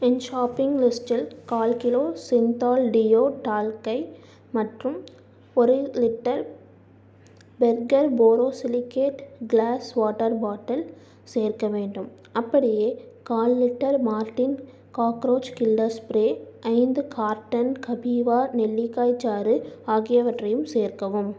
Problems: low volume